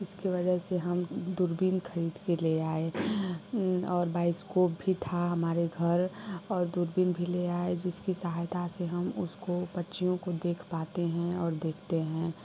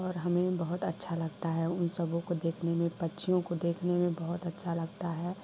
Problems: none marked